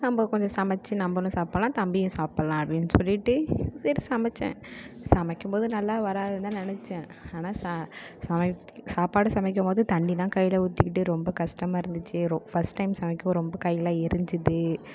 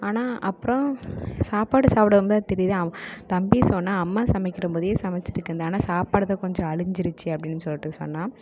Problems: none marked